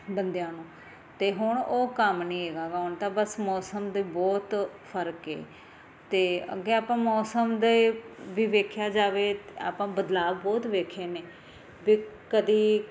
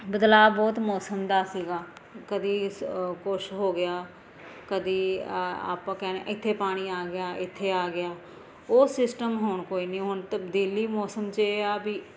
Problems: constant background noise